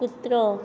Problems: constant background noise